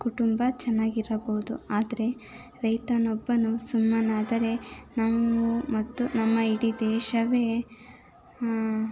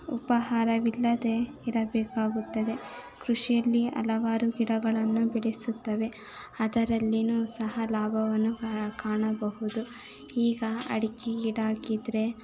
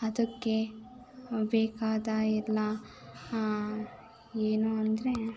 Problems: background sounds at intervals, continuous background conversations